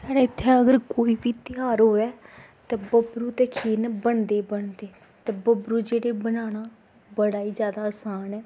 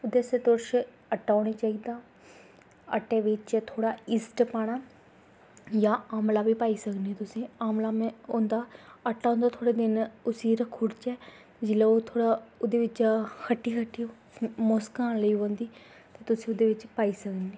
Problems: background sounds at intervals